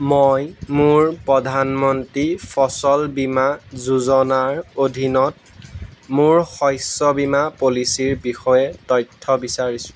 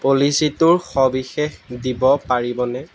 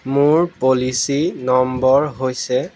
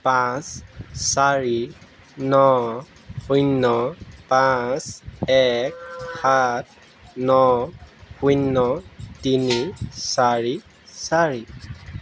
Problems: none marked